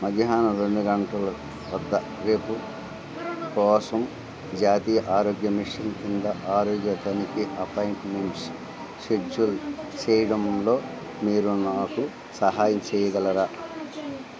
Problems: constant background noise